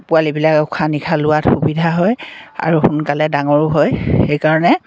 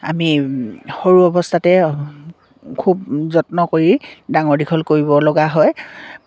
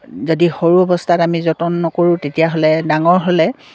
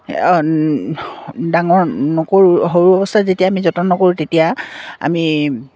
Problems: none marked